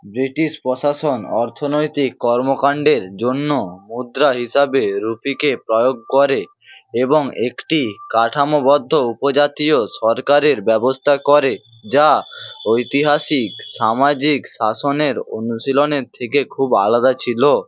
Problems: constant background noise